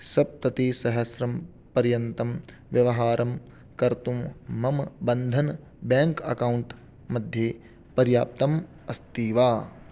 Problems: none marked